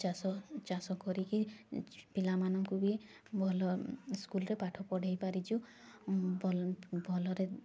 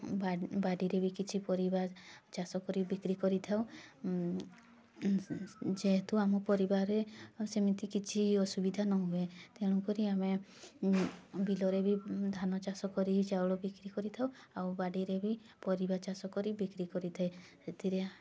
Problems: constant background noise, continuous background conversations